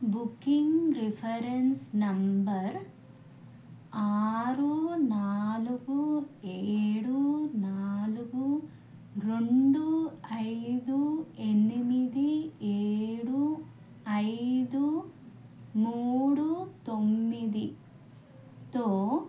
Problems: none marked